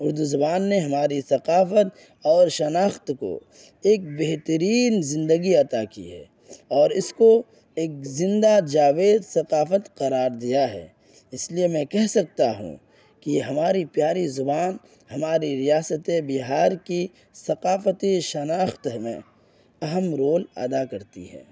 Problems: constant background noise